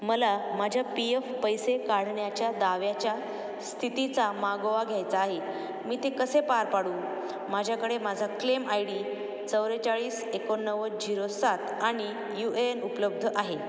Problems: none marked